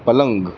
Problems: background sounds at intervals